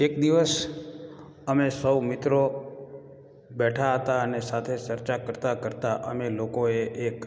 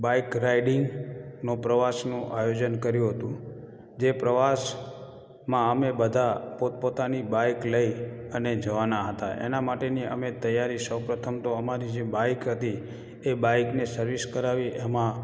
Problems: echo